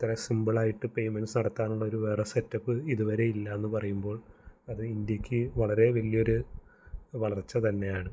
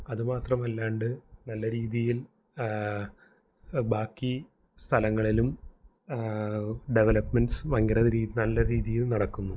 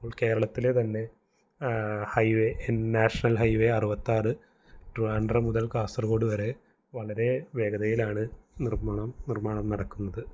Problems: none marked